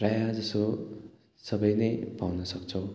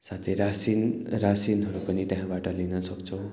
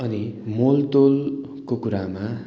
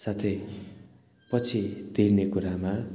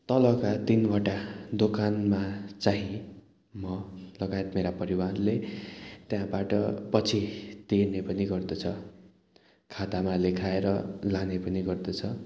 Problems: background sounds at intervals